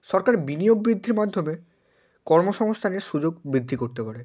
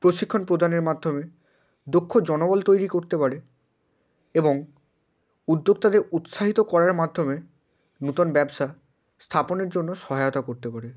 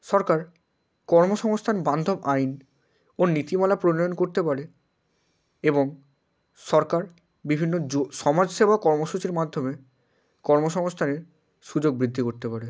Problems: constant background noise